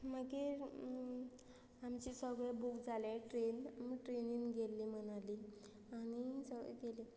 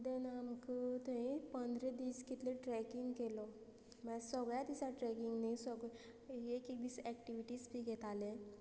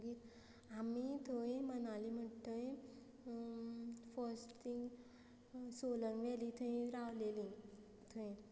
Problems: constant background noise